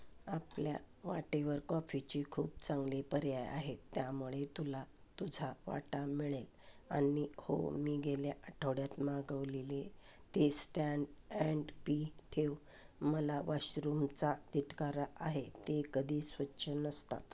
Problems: background sounds at intervals